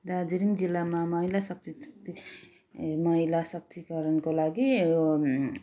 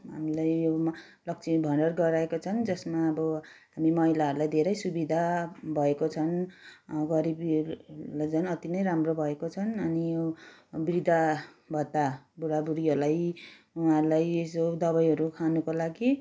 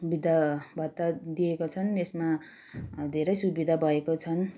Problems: background sounds at intervals